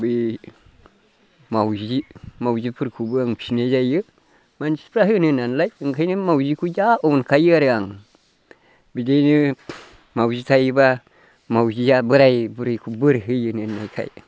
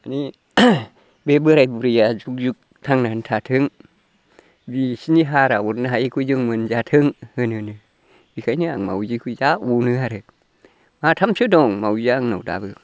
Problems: constant background noise